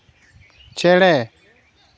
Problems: none marked